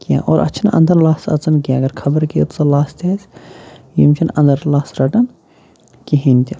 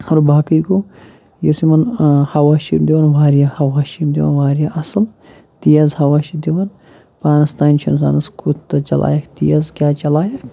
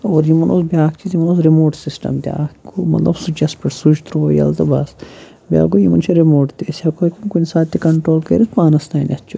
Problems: none marked